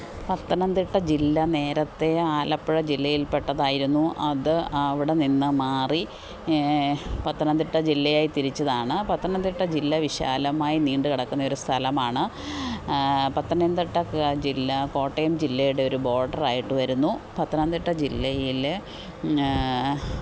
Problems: constant background noise